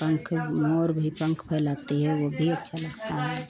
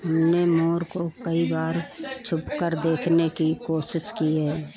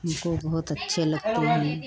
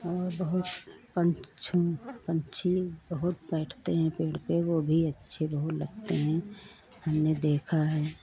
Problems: none marked